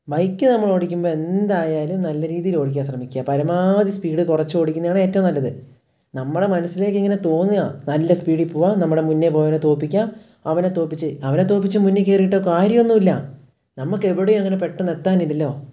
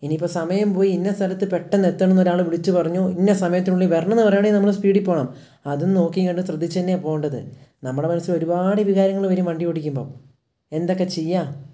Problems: none marked